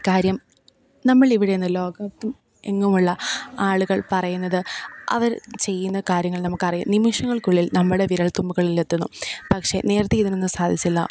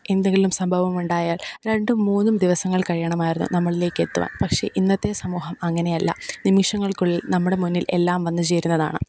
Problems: background sounds at intervals